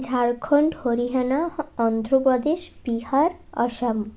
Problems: none marked